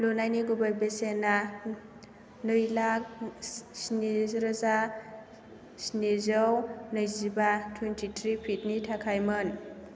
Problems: low volume